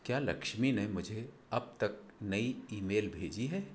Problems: low volume